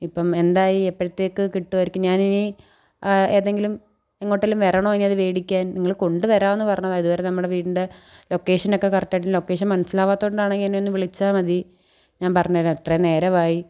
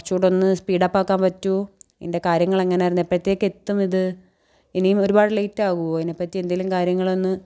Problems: none marked